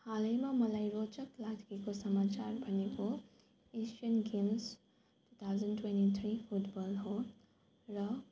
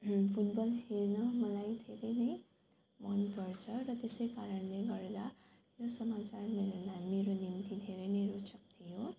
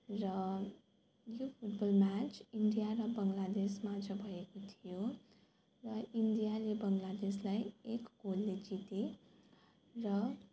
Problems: none marked